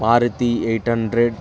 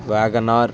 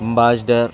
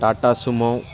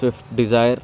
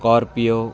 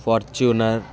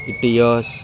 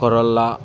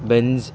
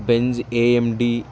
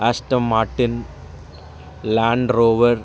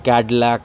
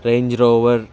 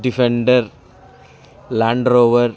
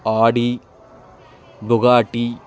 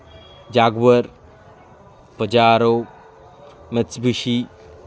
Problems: background sounds at intervals, continuous background conversations